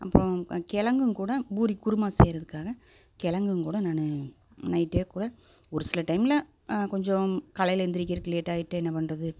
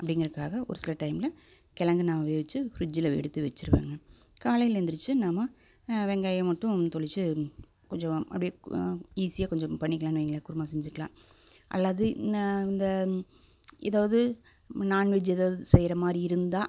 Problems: none marked